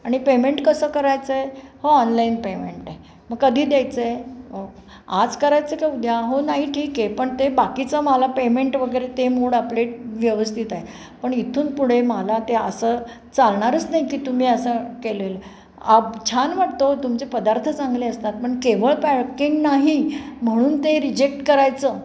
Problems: none marked